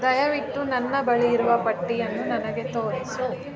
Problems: background sounds at intervals